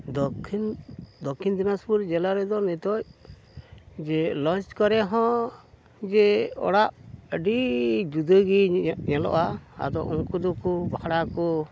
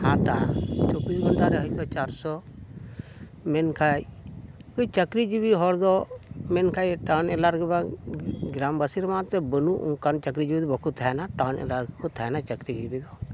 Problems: constant background noise